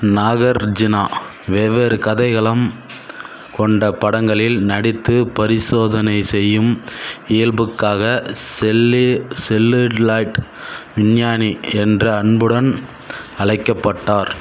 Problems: constant background noise